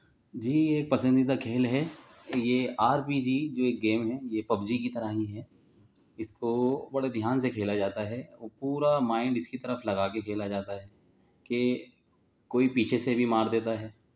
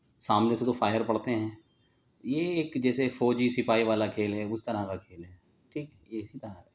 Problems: none marked